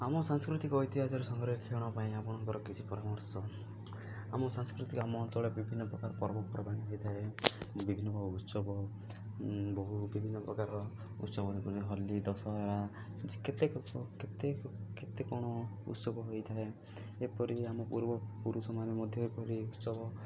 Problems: low volume